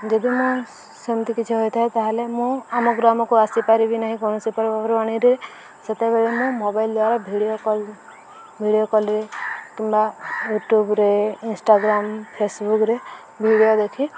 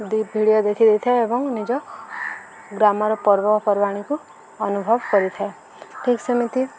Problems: none marked